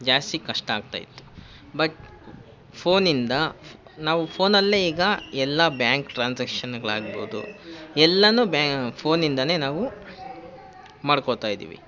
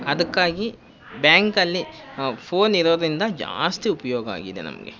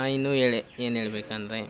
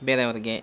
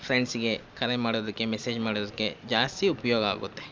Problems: constant background noise